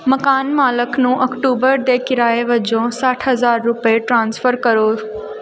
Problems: background sounds at intervals